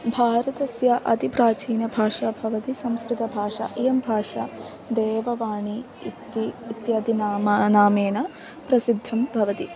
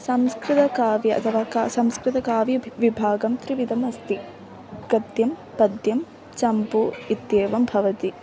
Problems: constant background noise, continuous background conversations